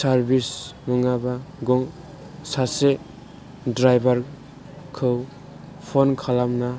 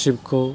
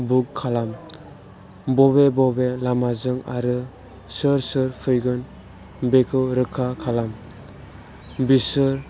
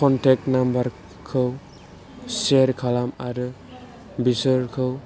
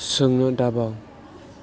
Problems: background sounds at intervals